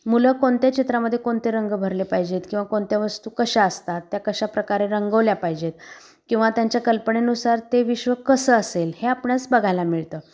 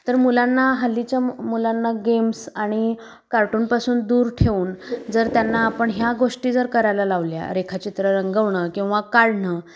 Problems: constant background noise